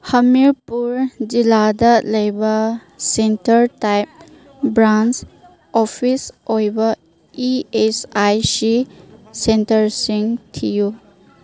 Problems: background conversations at intervals